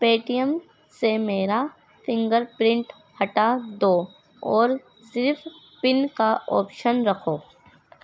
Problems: none marked